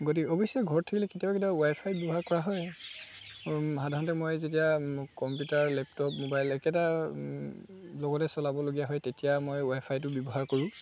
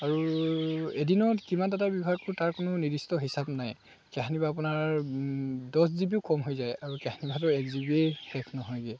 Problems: constant background noise, background conversations at intervals